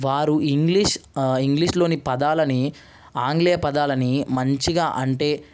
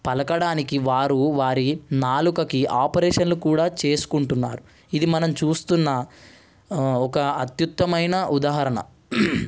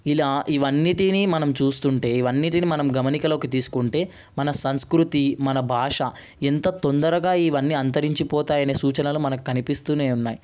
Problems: none marked